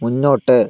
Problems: none marked